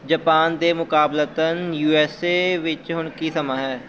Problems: constant background noise